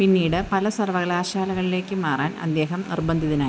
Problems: constant background noise